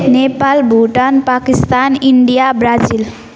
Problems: none marked